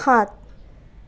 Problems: none marked